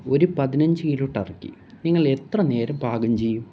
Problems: low volume